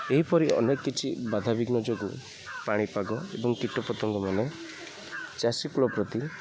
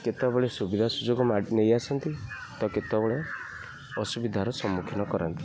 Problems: background sounds at intervals, low volume